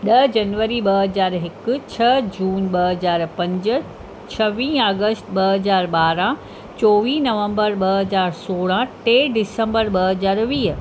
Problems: constant background noise